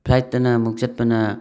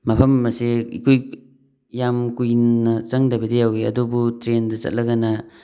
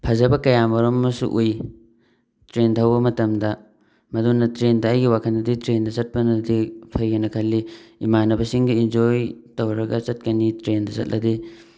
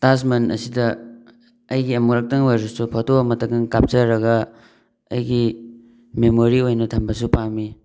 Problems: background sounds at intervals